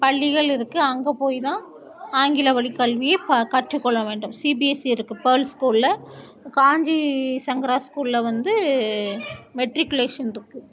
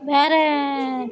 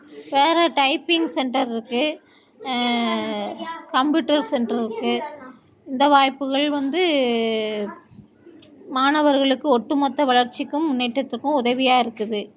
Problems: continuous background conversations